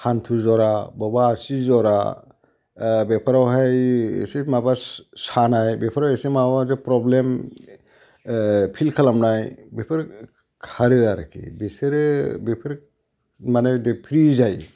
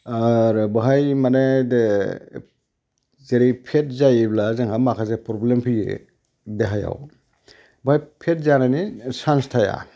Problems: background sounds at intervals